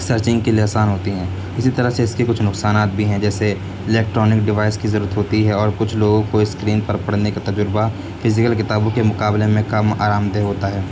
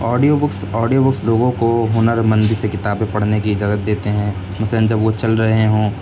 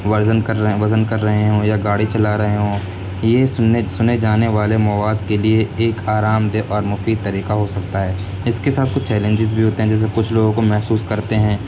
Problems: constant background noise